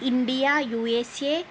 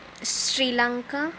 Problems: constant background noise